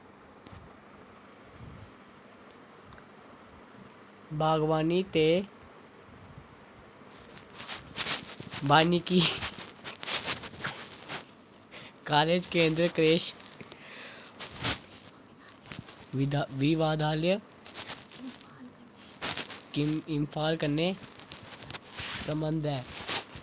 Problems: constant background noise